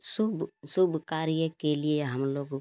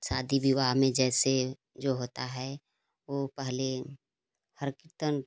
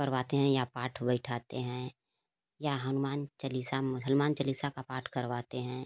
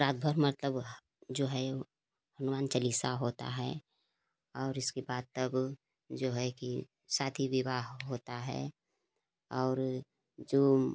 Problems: constant background noise